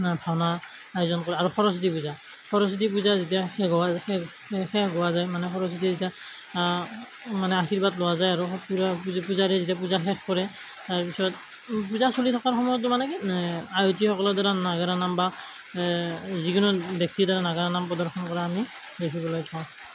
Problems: constant background noise